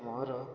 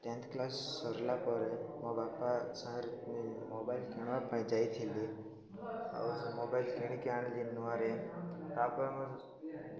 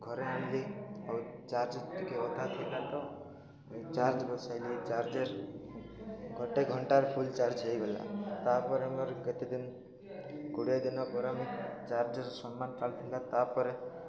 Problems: constant background noise